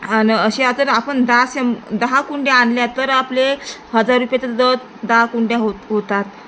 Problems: constant background noise